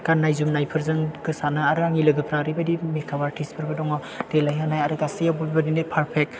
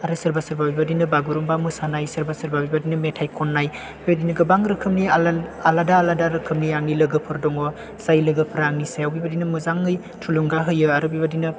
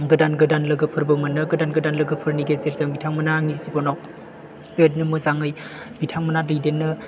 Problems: background sounds at intervals